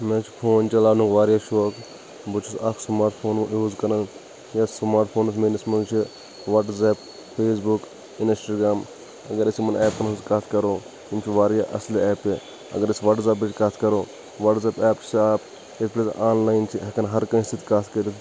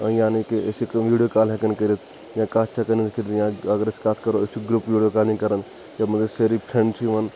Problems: constant background noise